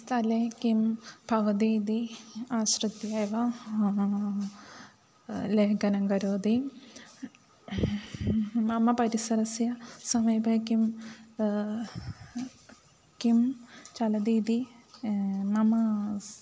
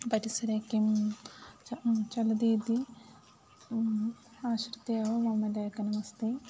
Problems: none marked